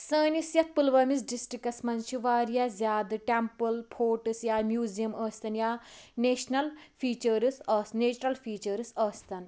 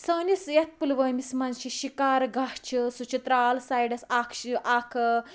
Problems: background sounds at intervals, background conversations at intervals